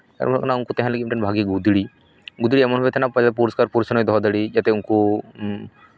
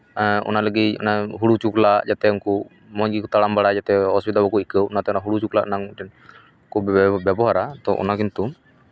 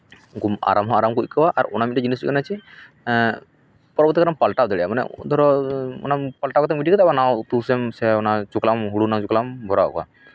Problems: none marked